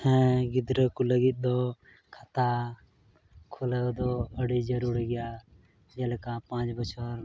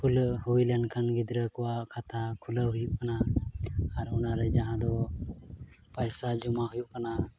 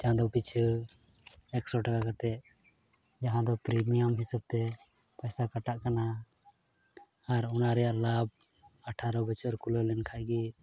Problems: background sounds at intervals, low volume